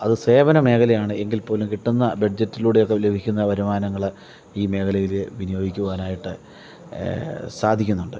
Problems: none marked